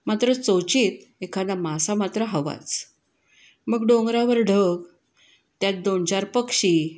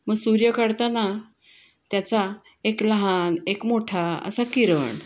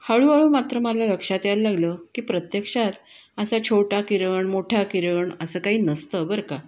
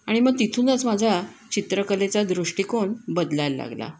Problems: background sounds at intervals, echo